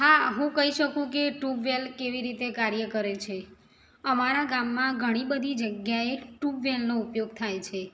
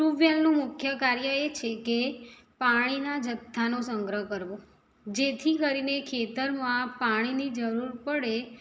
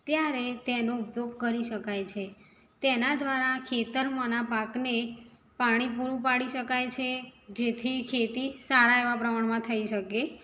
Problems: none marked